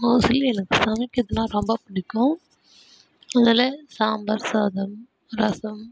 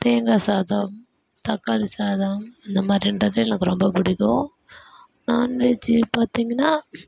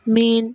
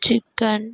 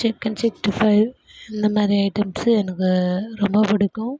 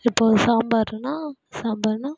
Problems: background sounds at intervals